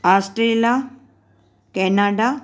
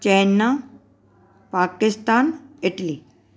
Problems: none marked